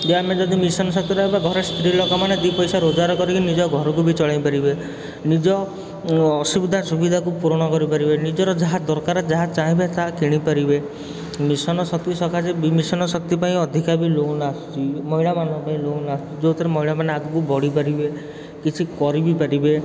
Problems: constant background noise